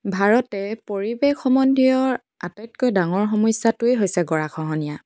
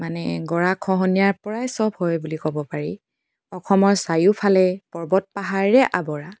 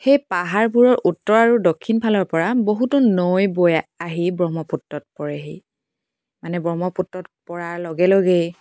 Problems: background sounds at intervals